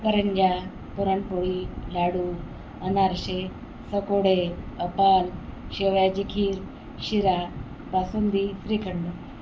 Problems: none marked